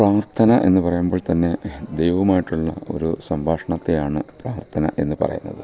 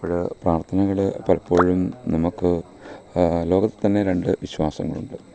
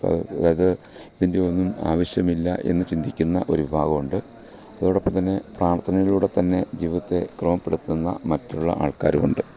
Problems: none marked